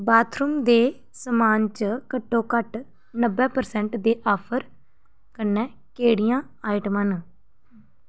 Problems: none marked